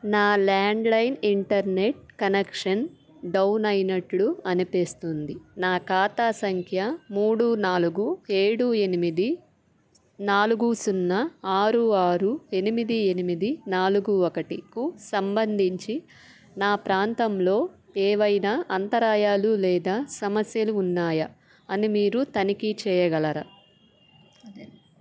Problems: background sounds at intervals